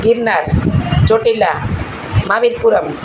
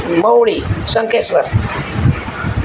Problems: constant background noise